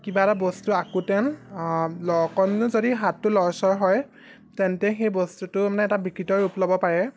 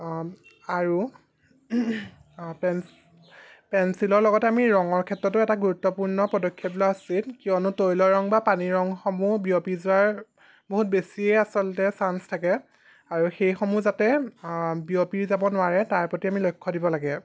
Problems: background sounds at intervals